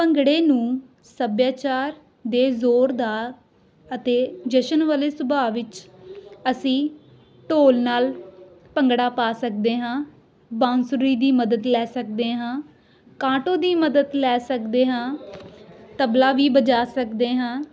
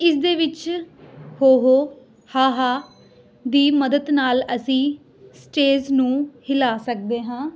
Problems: background conversations at intervals